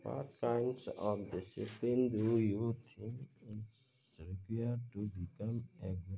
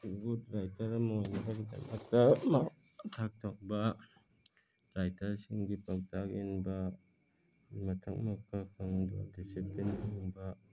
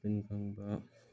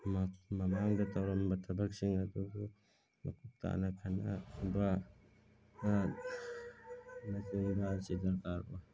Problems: background sounds at intervals